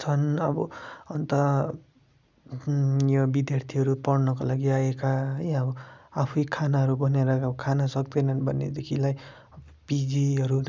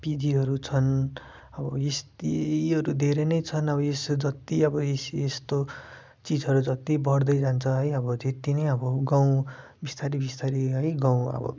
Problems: background sounds at intervals